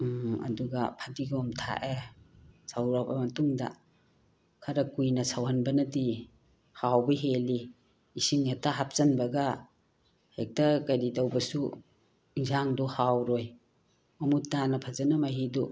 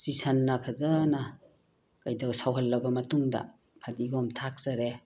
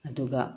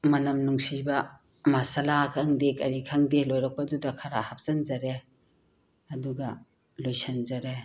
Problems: background sounds at intervals